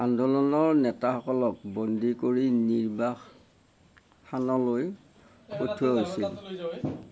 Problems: none marked